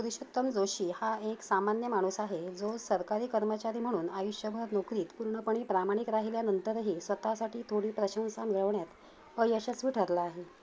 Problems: none marked